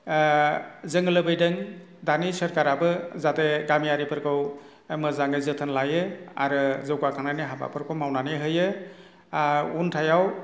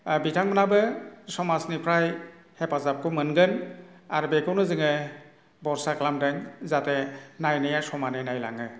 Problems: none marked